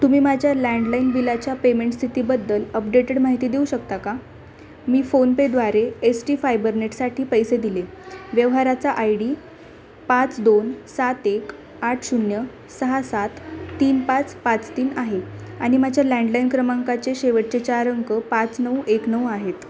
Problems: constant background noise, continuous background conversations